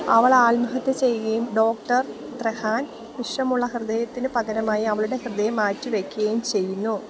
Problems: none marked